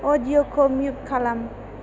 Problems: constant background noise